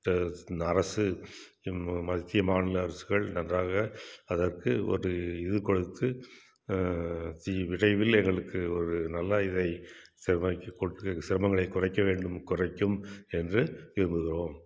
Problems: none marked